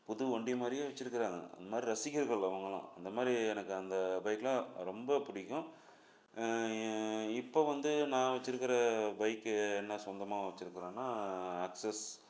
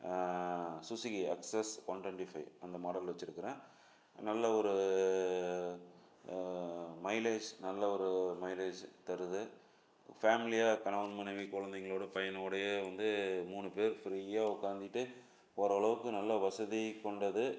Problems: none marked